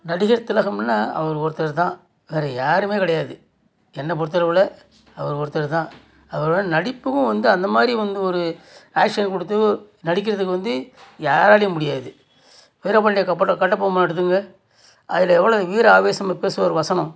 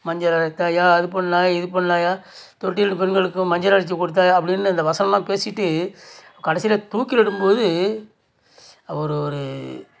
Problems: none marked